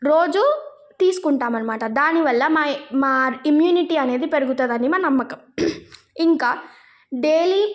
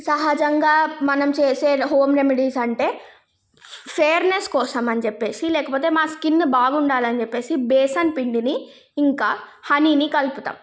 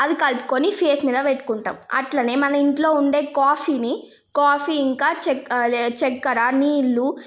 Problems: background sounds at intervals